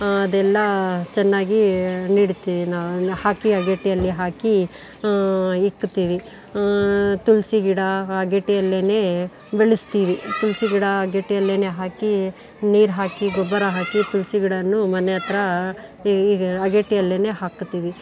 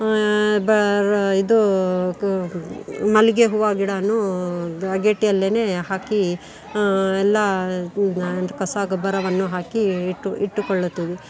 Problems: background sounds at intervals, background conversations at intervals